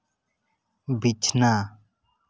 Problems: none marked